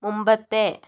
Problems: none marked